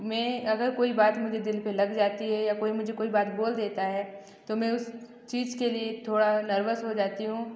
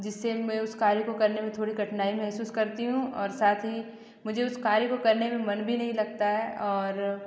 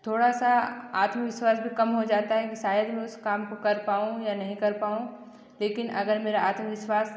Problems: echo